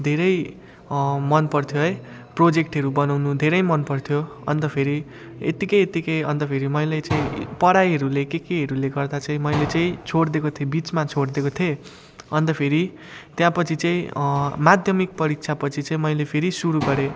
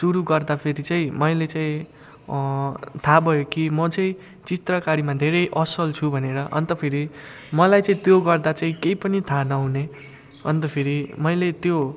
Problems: none marked